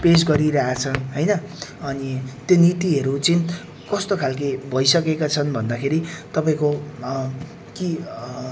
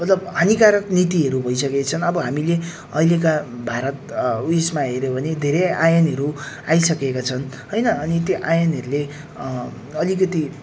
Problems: none marked